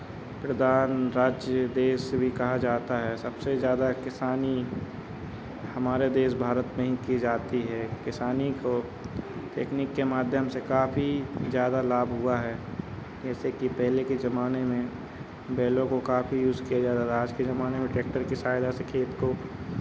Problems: background sounds at intervals